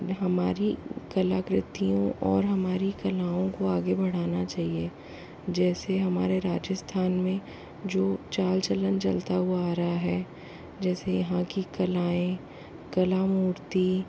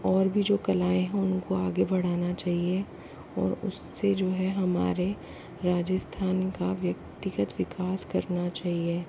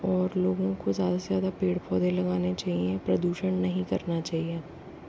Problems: constant background noise, low volume